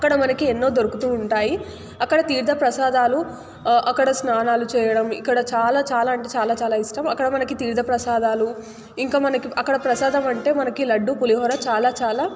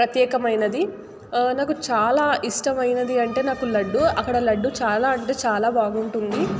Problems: none marked